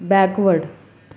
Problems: background sounds at intervals